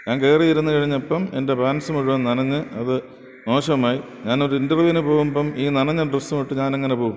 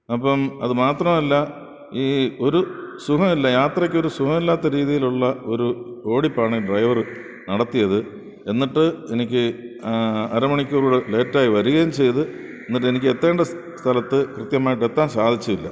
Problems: background sounds at intervals